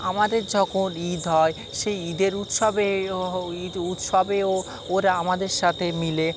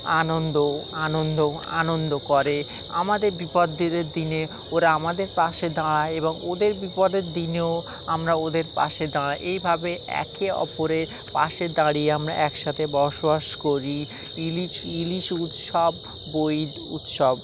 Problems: none marked